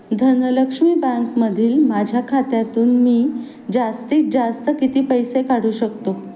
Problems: constant background noise